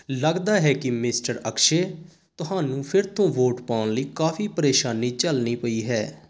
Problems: constant background noise